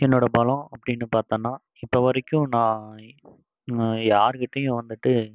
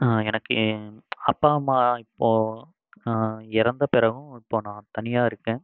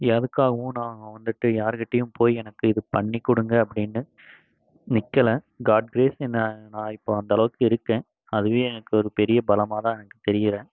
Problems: background sounds at intervals